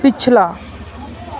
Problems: none marked